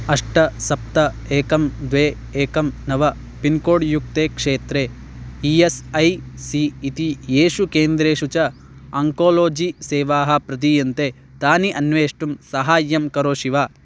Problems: background sounds at intervals